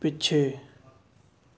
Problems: none marked